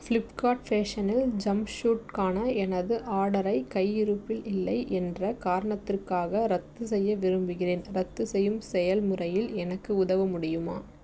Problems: none marked